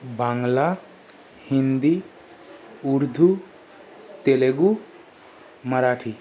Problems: background sounds at intervals